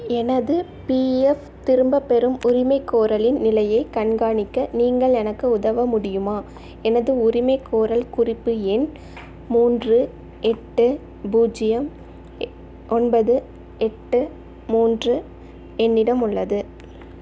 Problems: constant background noise